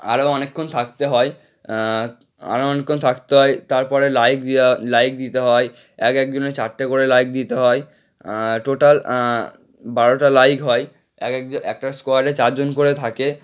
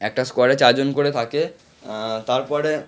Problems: none marked